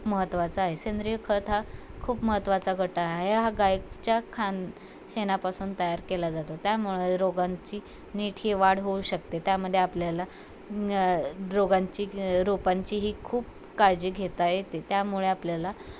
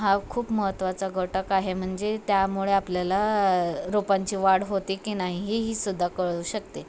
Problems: constant background noise, background conversations at intervals